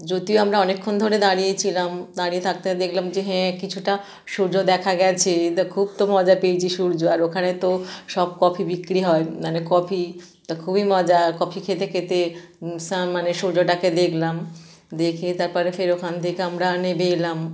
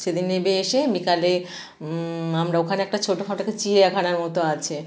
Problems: none marked